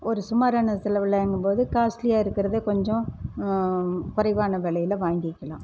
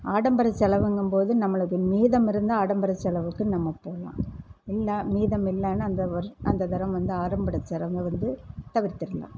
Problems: none marked